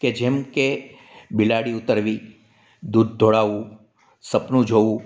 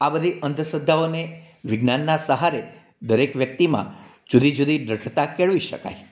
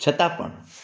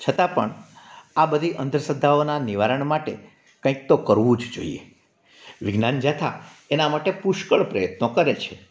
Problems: background sounds at intervals